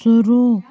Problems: constant background noise